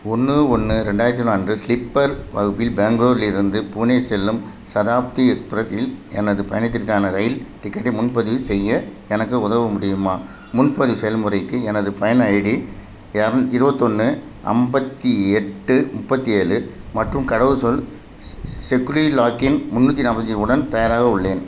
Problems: none marked